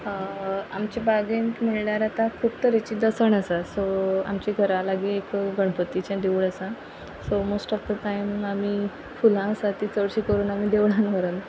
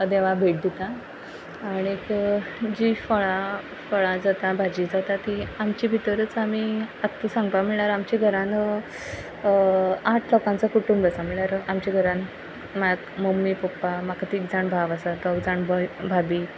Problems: none marked